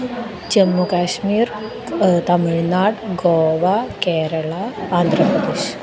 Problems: constant background noise